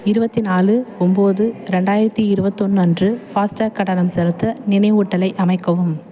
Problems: continuous background conversations